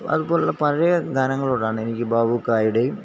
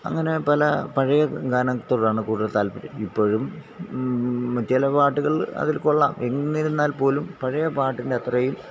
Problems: constant background noise